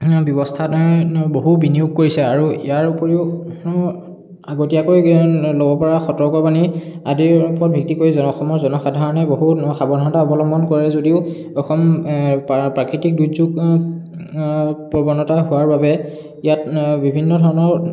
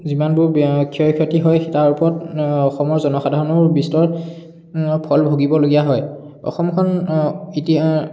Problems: background sounds at intervals, background conversations at intervals, echo